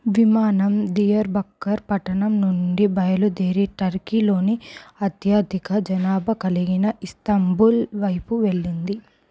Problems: low volume